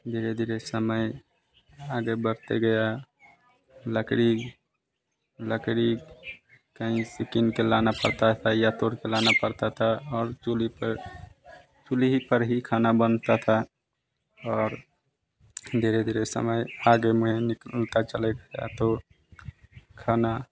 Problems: constant background noise